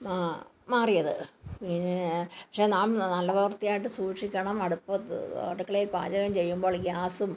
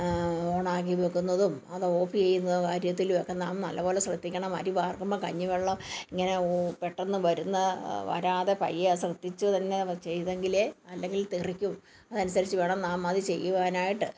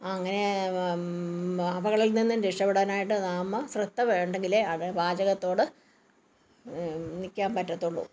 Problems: background conversations at intervals